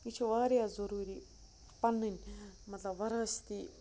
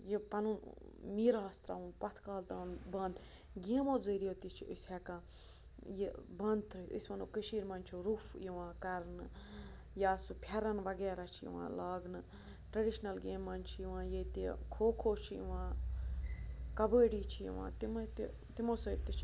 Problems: low volume